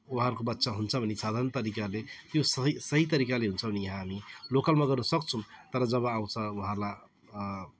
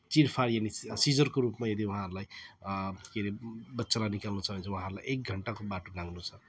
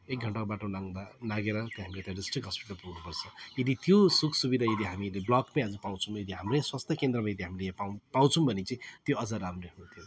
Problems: constant background noise